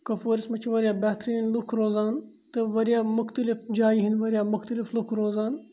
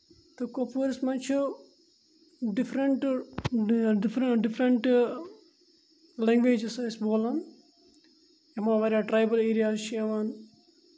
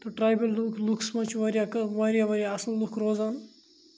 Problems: none marked